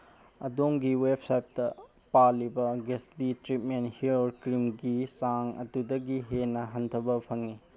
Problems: background sounds at intervals